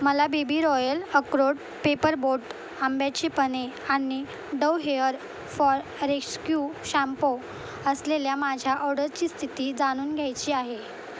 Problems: constant background noise